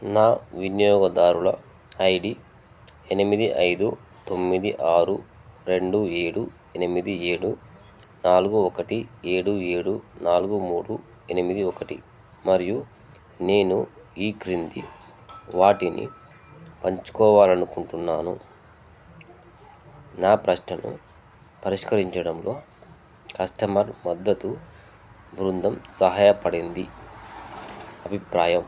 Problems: none marked